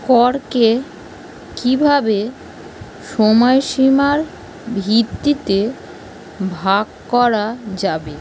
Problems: constant background noise